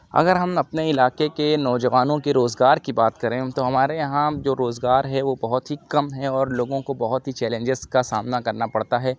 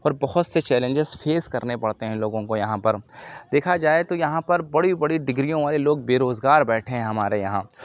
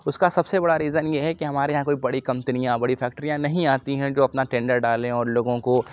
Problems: background sounds at intervals